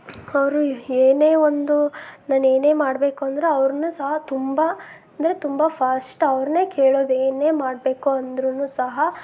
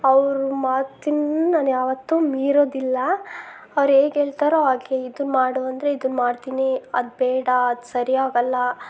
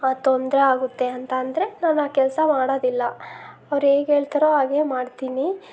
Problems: background sounds at intervals